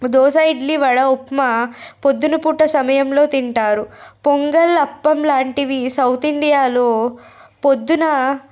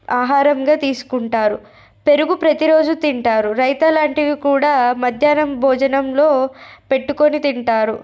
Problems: none marked